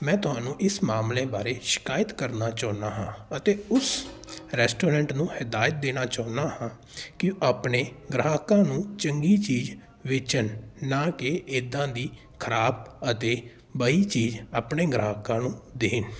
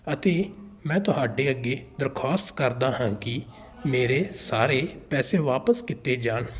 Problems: background sounds at intervals